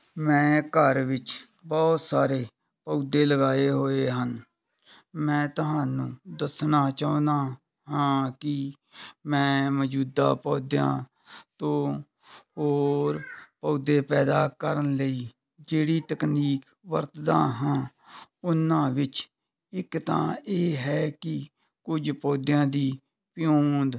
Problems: background sounds at intervals